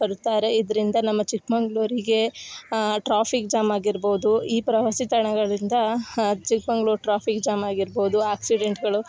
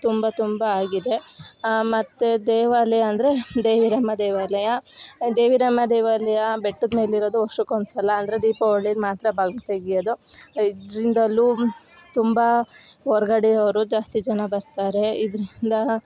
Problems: background sounds at intervals